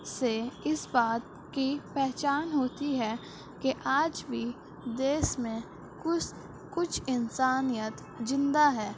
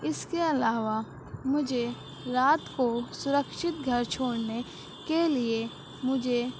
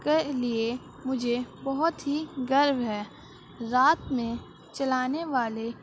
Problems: constant background noise, background conversations at intervals